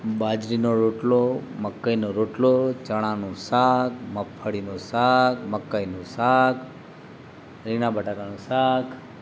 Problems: constant background noise